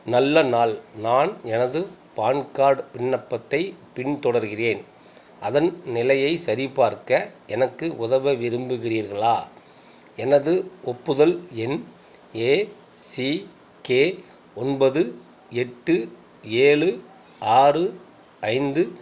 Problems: none marked